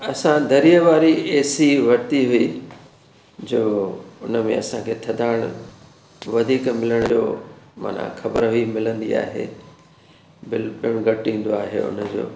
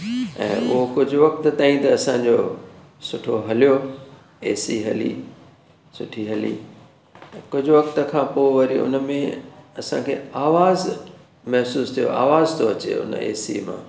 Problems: constant background noise